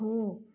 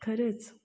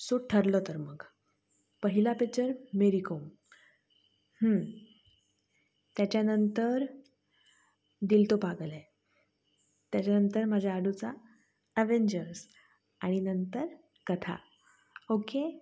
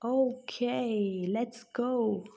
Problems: none marked